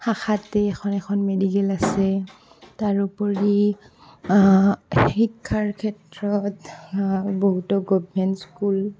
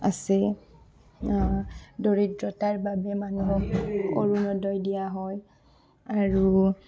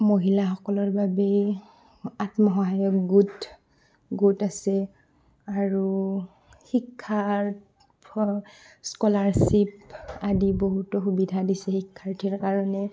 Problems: constant background noise, background conversations at intervals, low volume